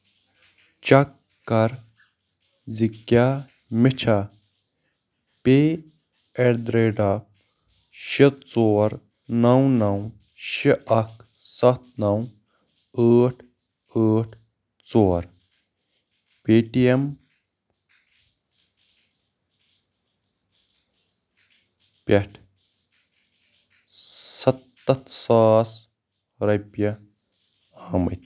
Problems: none marked